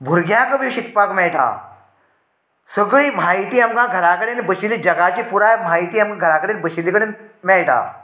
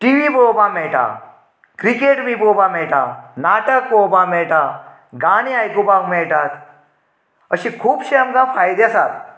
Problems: none marked